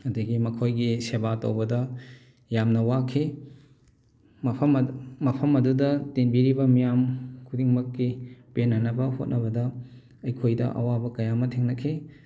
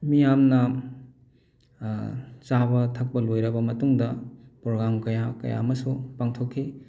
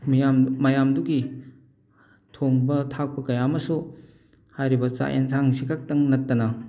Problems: none marked